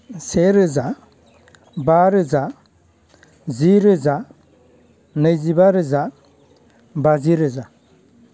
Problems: none marked